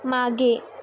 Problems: none marked